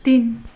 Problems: low volume